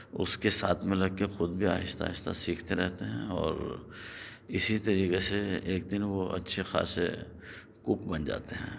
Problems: background sounds at intervals